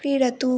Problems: none marked